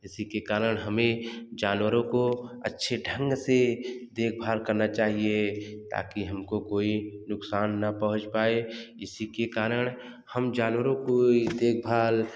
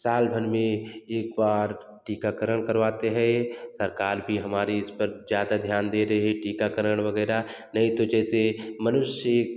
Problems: background sounds at intervals, echo